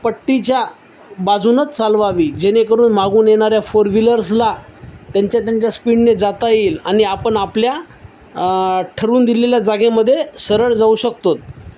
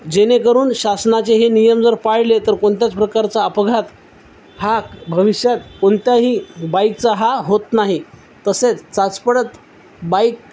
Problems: none marked